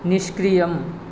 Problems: constant background noise